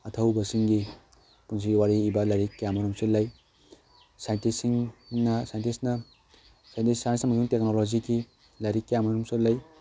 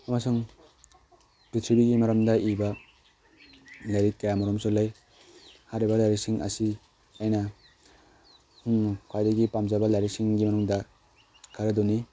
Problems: background sounds at intervals